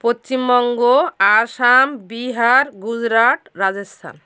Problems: none marked